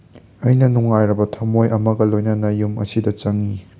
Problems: none marked